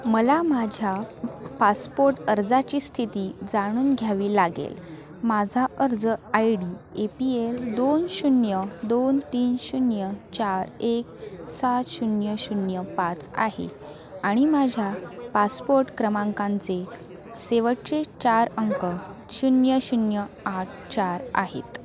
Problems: continuous background conversations